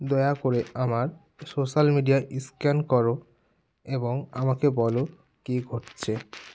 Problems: none marked